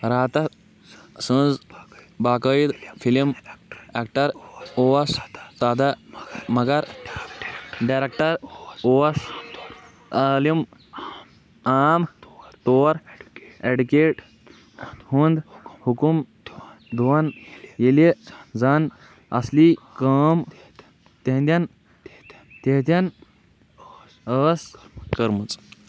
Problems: background sounds at intervals, background conversations at intervals